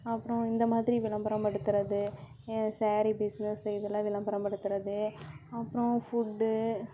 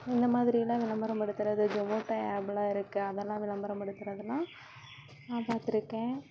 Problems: low volume